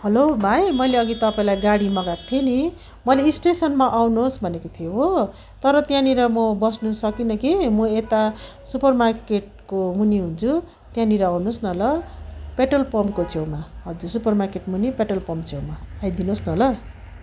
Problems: background sounds at intervals